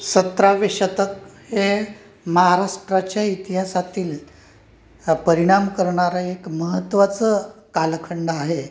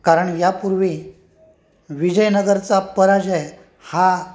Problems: background sounds at intervals